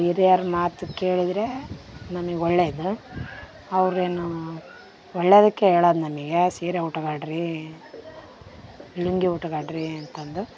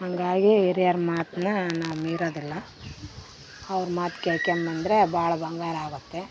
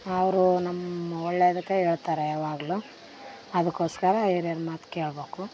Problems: background sounds at intervals